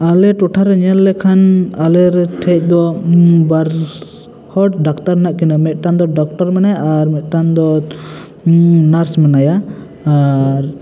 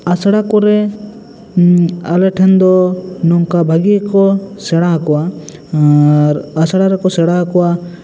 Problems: constant background noise, echo